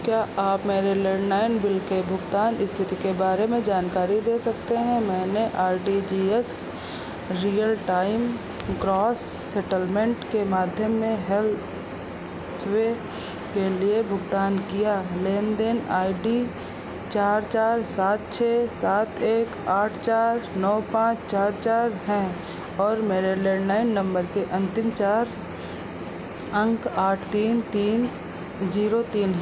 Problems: none marked